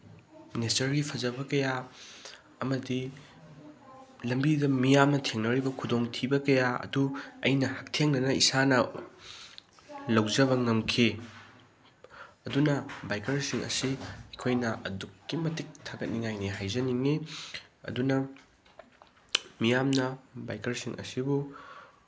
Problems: none marked